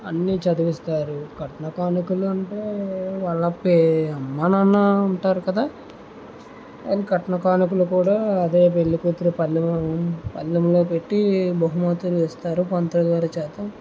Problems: constant background noise